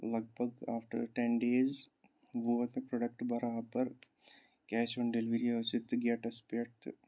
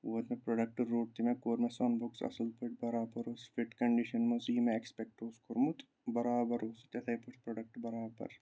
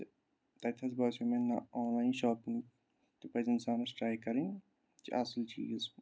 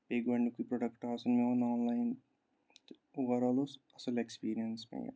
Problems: none marked